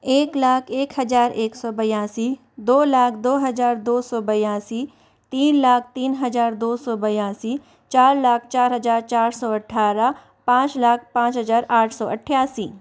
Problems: constant background noise